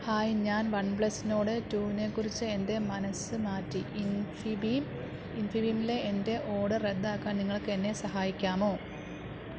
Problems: none marked